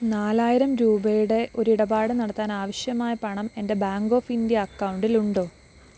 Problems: constant background noise